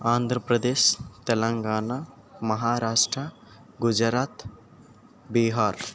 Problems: none marked